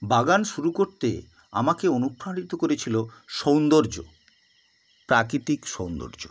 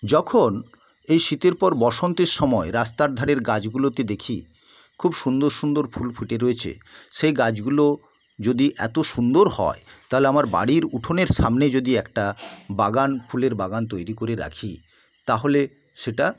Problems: constant background noise